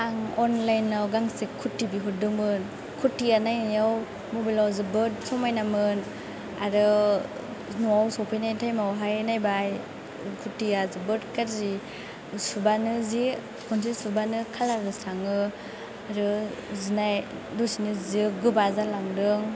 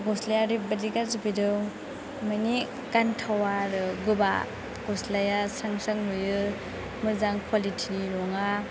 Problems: constant background noise